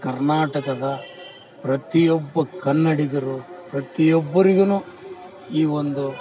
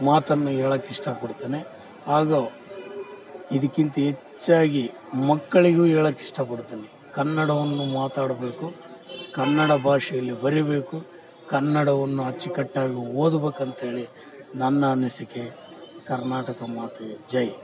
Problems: background sounds at intervals